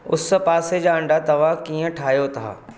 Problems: none marked